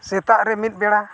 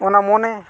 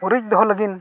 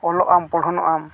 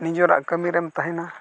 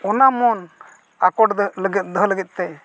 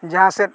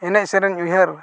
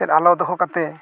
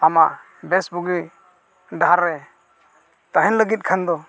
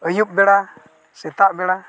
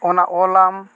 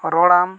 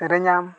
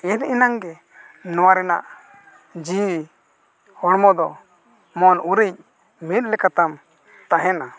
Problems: none marked